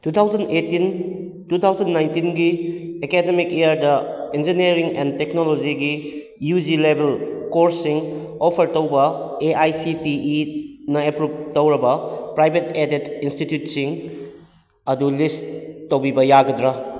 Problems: echo